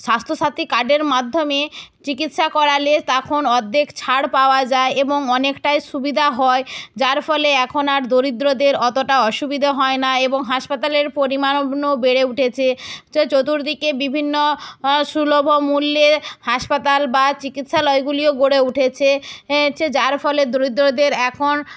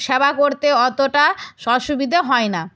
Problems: none marked